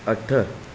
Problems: constant background noise